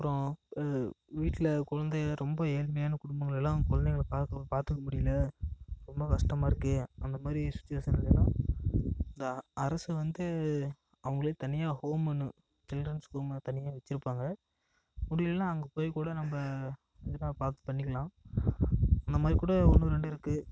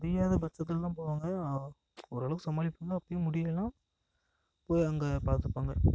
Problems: echo